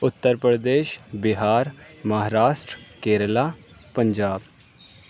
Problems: none marked